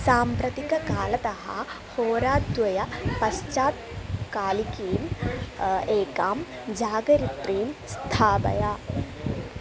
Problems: background conversations at intervals